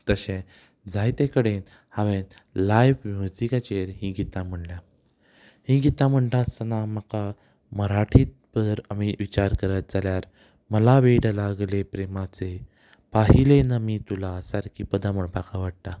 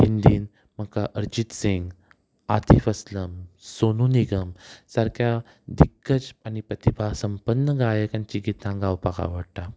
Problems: none marked